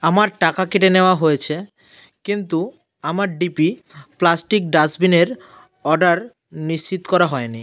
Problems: constant background noise